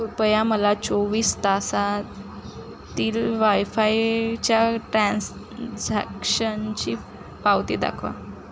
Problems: none marked